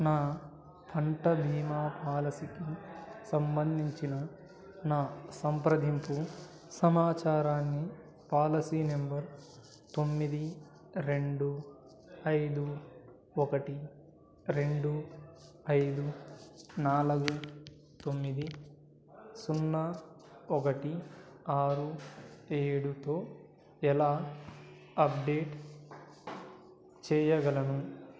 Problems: background conversations at intervals